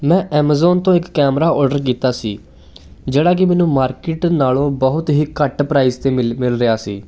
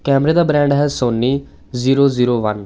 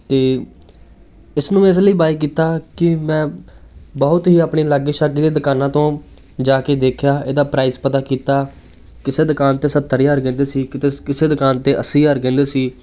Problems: none marked